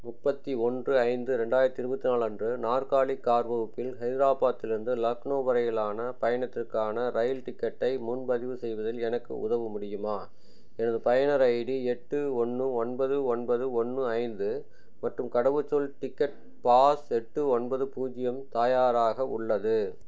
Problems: none marked